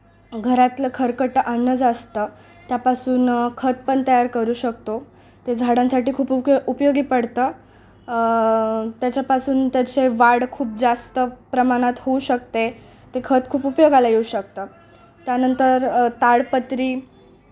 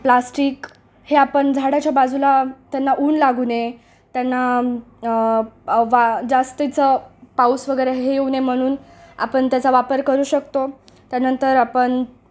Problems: background sounds at intervals